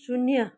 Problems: constant background noise